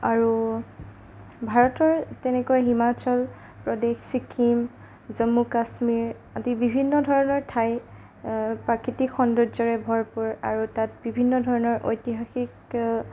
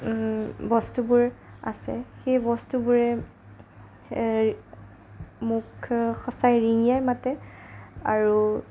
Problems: none marked